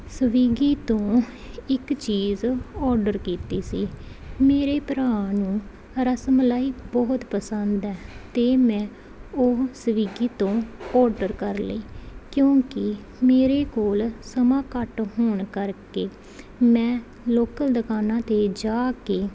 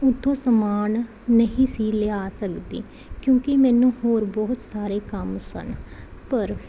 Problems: none marked